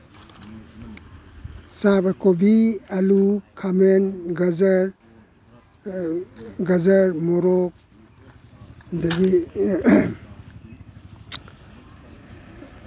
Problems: none marked